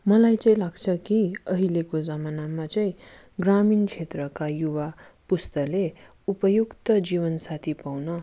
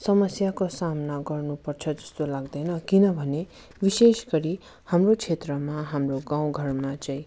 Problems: none marked